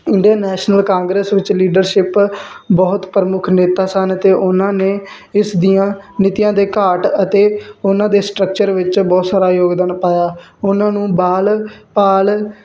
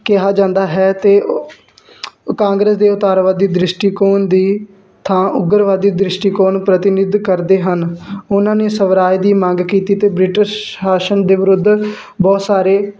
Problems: constant background noise